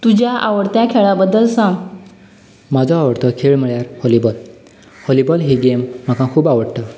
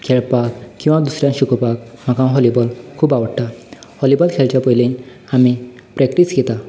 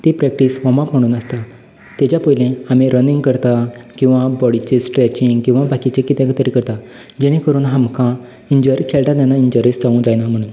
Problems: none marked